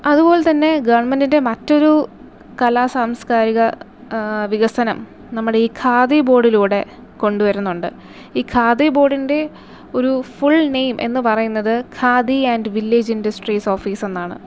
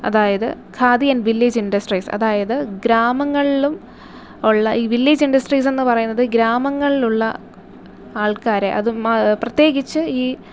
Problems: none marked